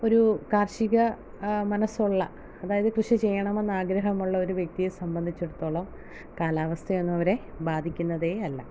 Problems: low volume